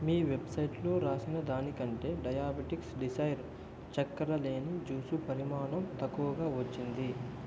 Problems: low volume